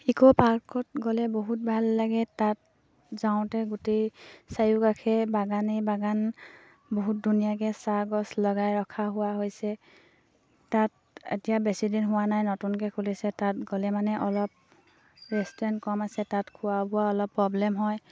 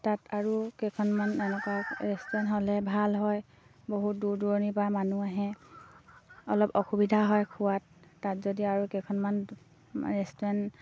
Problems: low volume